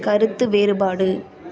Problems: background conversations at intervals